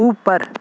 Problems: constant background noise